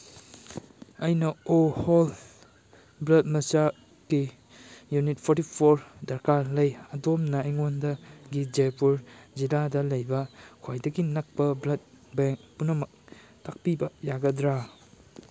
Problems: background sounds at intervals